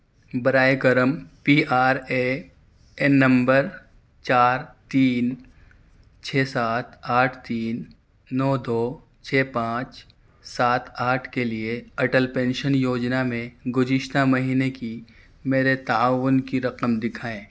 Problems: none marked